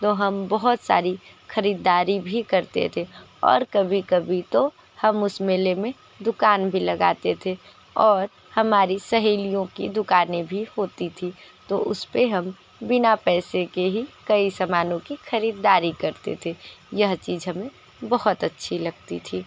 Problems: constant background noise